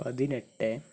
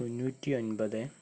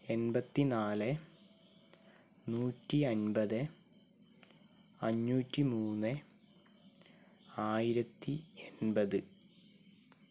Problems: none marked